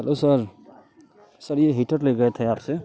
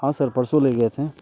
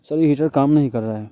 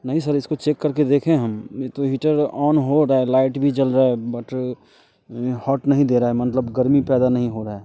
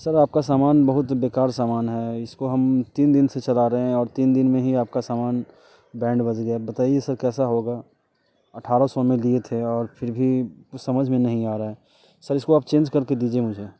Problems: background sounds at intervals